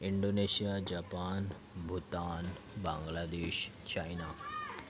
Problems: continuous background conversations